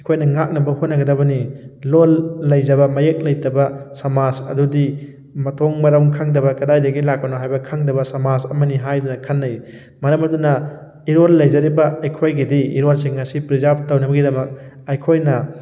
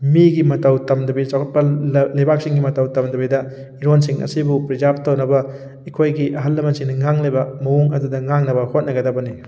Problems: none marked